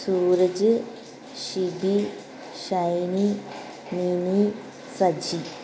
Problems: constant background noise